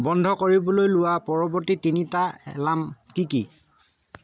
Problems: none marked